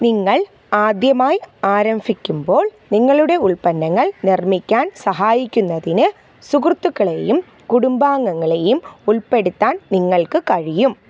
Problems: background sounds at intervals